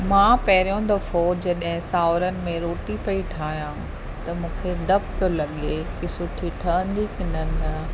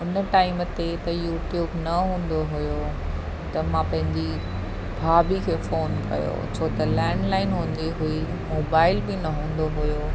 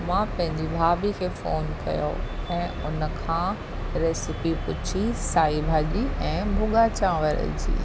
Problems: constant background noise